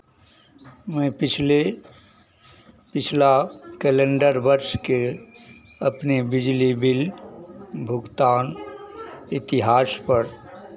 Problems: background sounds at intervals